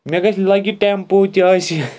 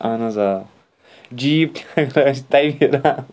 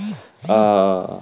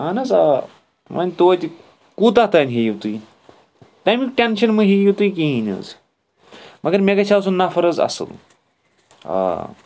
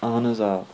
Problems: constant background noise